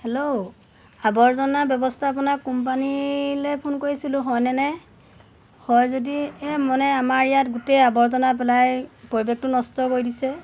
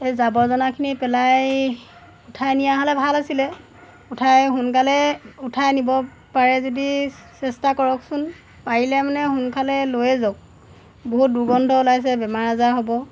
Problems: none marked